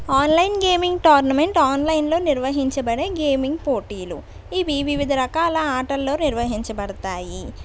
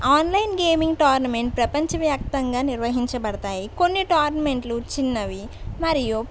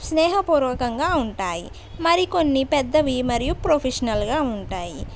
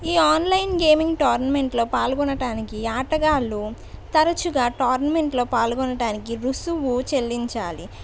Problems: none marked